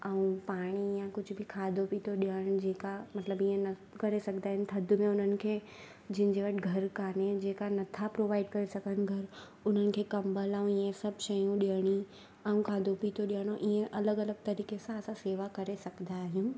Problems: constant background noise